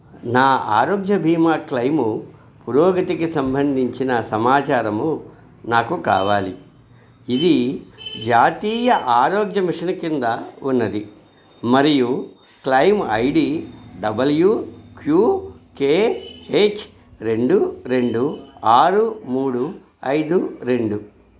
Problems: background sounds at intervals